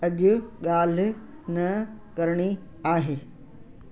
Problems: constant background noise, echo